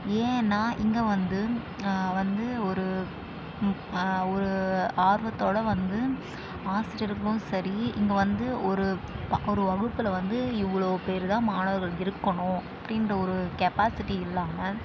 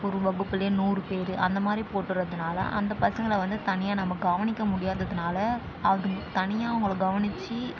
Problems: constant background noise